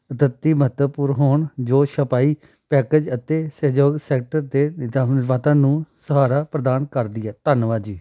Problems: background sounds at intervals